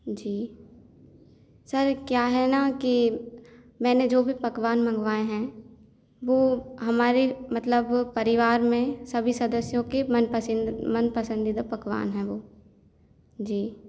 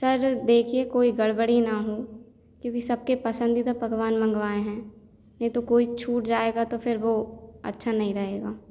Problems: none marked